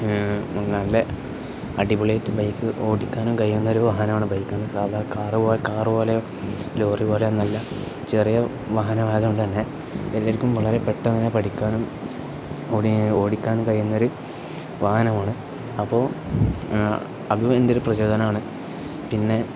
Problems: none marked